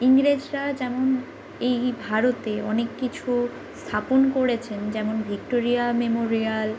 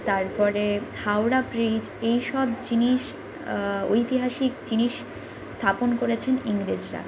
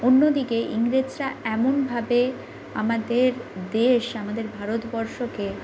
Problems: none marked